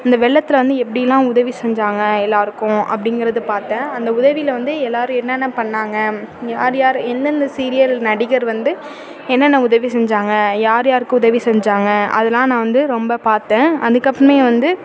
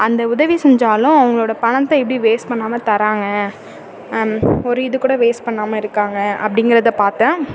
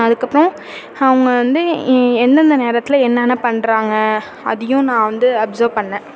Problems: constant background noise